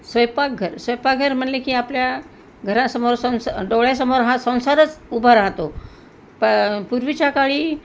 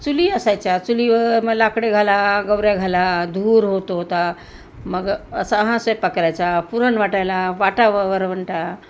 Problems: constant background noise